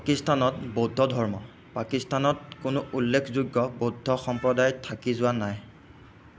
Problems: constant background noise